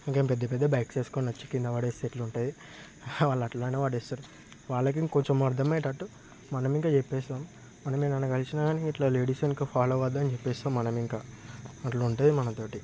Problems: none marked